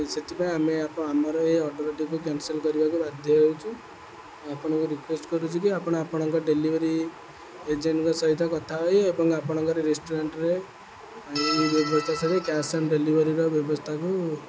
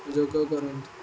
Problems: none marked